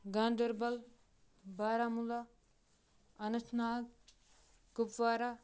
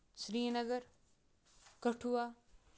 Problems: background sounds at intervals